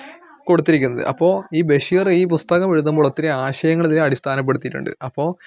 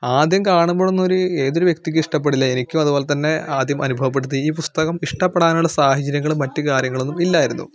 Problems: none marked